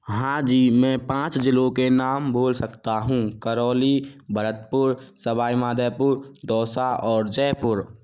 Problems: none marked